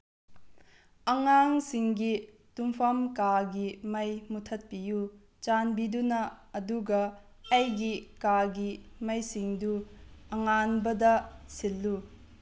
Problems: low volume